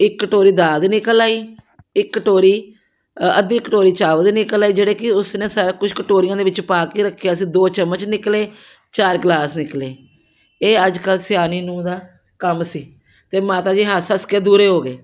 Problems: background sounds at intervals